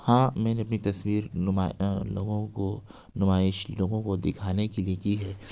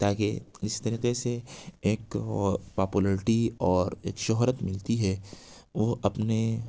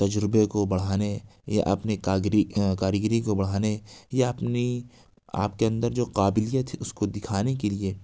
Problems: none marked